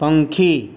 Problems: constant background noise